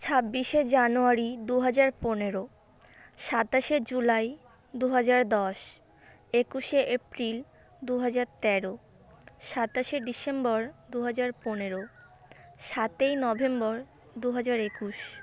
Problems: constant background noise, background conversations at intervals